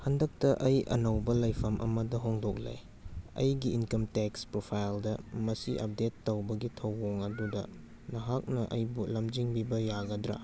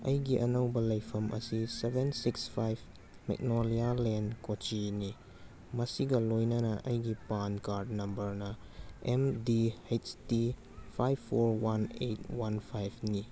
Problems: background sounds at intervals